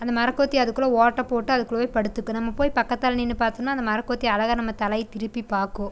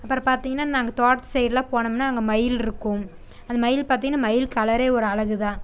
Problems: constant background noise